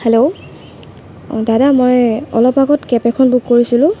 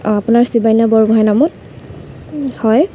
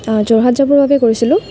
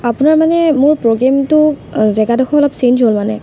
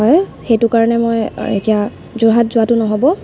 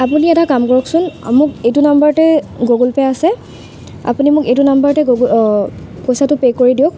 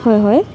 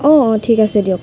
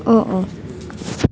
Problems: constant background noise